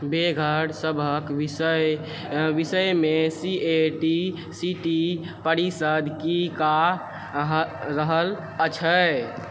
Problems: background sounds at intervals